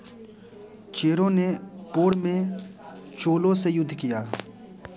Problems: constant background noise, continuous background conversations